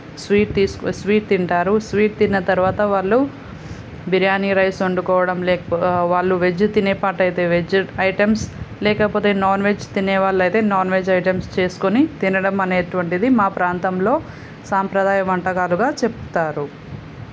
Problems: none marked